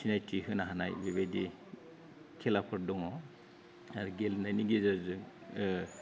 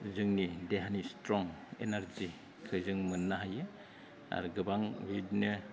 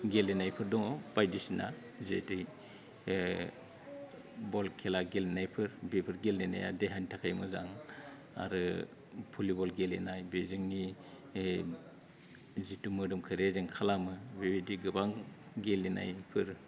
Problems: low volume